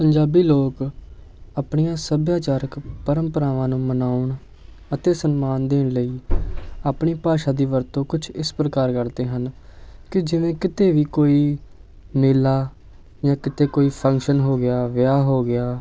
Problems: constant background noise